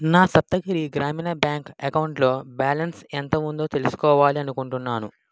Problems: background sounds at intervals